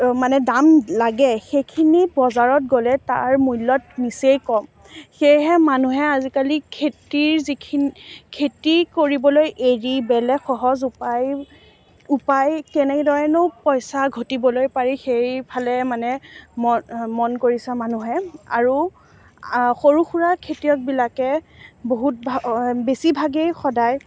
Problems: background sounds at intervals, background conversations at intervals